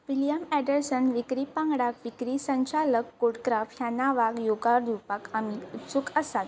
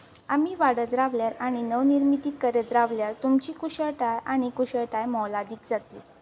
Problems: background sounds at intervals